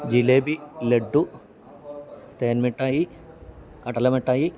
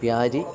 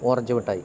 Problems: constant background noise, background conversations at intervals